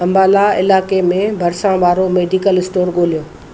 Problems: constant background noise